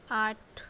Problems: none marked